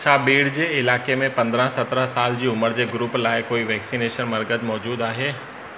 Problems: constant background noise, echo